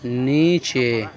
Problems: constant background noise